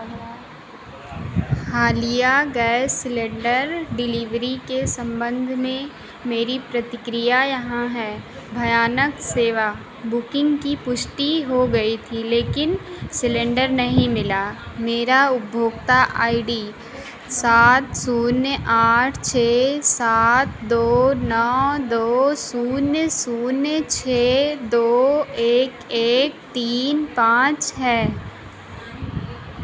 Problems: constant background noise